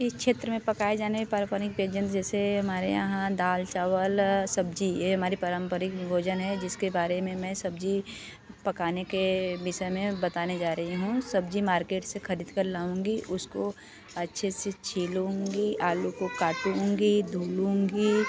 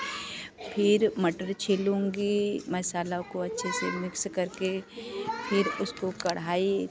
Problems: continuous background conversations